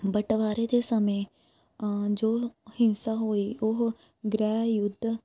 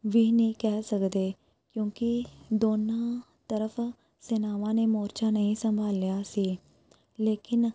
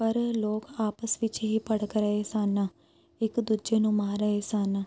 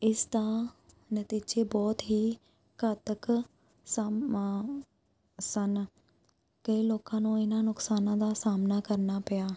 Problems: background sounds at intervals